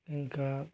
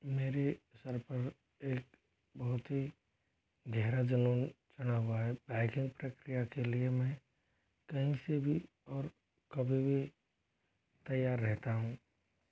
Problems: low volume